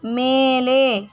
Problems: constant background noise